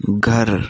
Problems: none marked